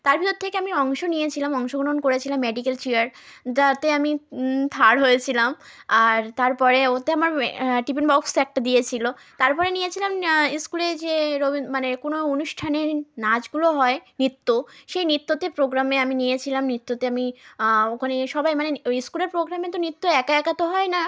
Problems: continuous background conversations